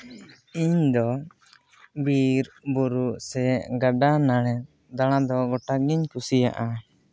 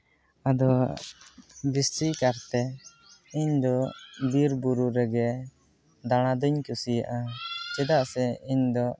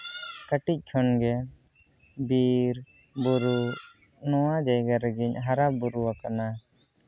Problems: background conversations at intervals